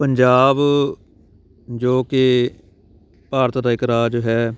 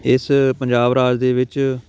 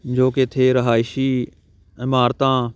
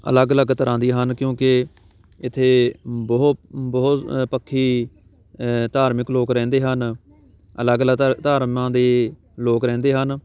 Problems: background sounds at intervals, background conversations at intervals